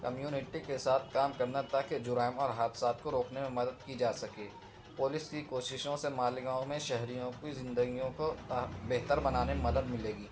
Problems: constant background noise